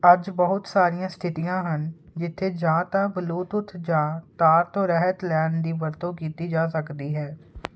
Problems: constant background noise